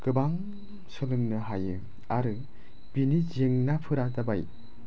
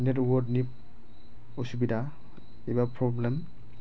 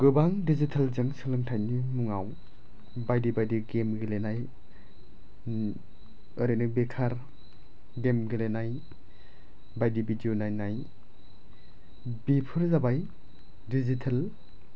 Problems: none marked